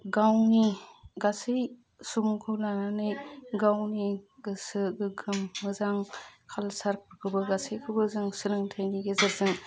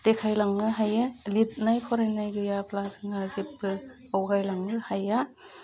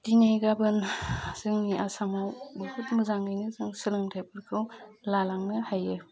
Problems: constant background noise